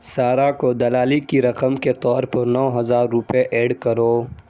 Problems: background sounds at intervals